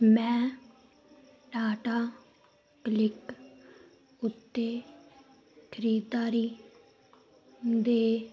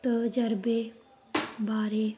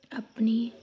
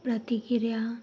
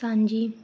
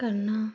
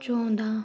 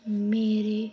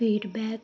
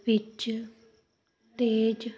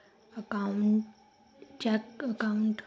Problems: none marked